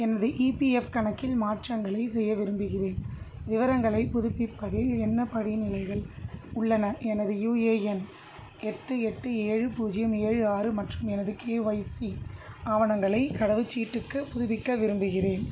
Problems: constant background noise